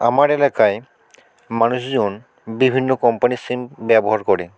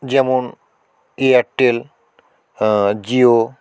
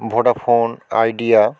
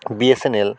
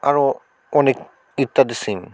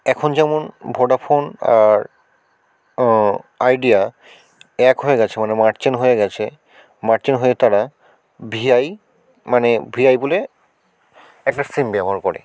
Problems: constant background noise